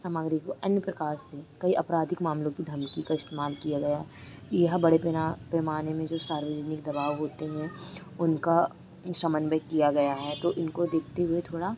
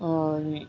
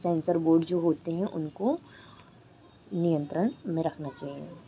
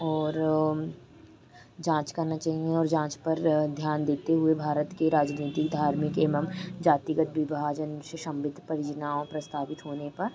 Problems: constant background noise